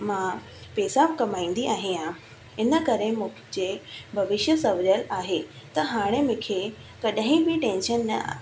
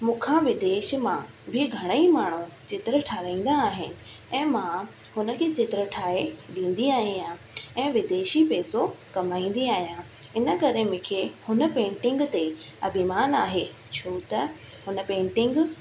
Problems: constant background noise, echo